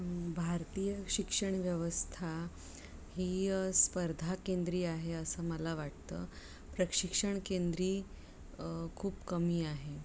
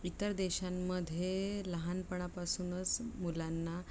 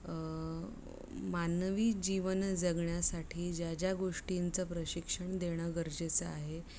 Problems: low volume